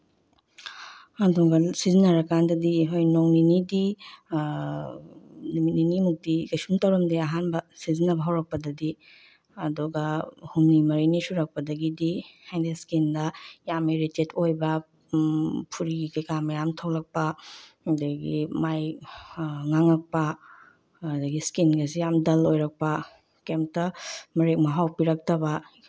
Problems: background sounds at intervals, low volume